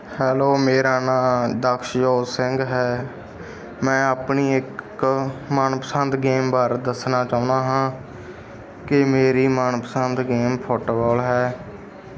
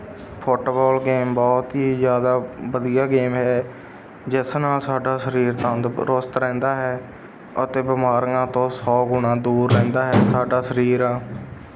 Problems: background sounds at intervals